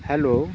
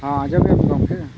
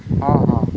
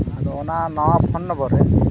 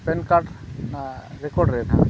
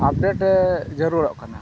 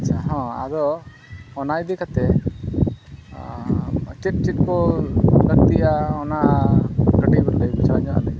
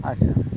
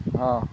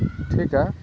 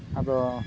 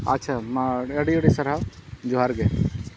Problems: constant background noise